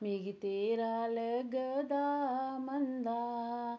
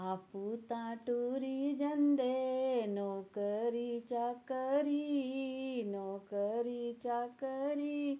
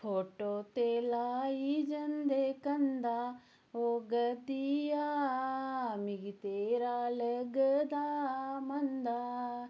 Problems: none marked